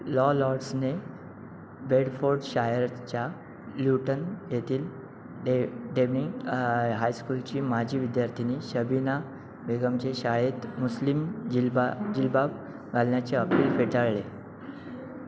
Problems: background sounds at intervals